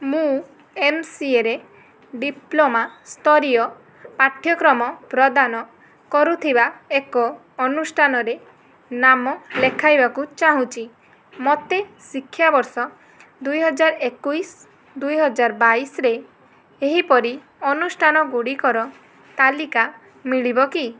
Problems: none marked